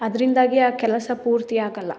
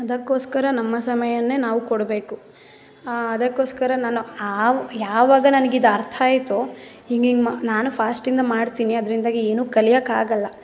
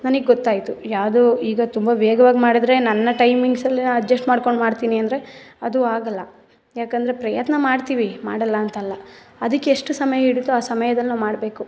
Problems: none marked